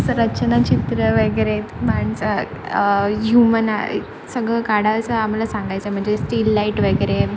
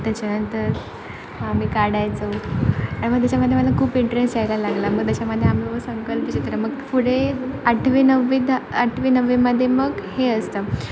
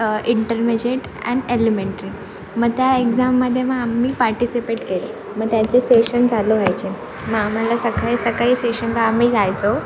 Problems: background sounds at intervals